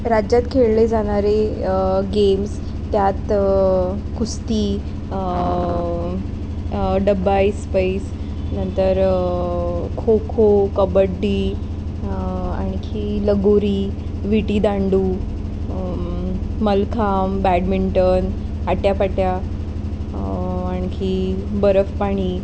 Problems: constant background noise